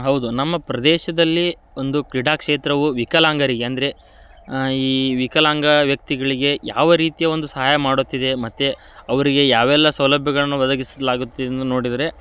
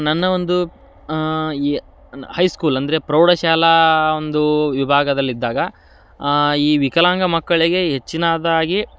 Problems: none marked